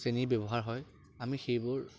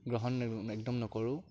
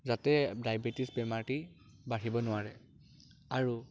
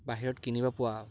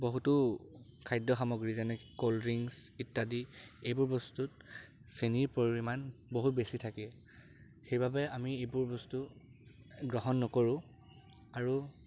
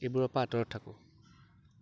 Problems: constant background noise